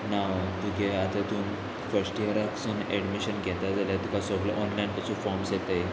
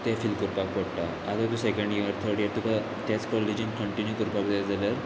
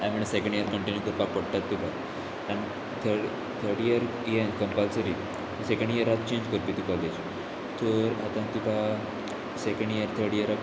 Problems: none marked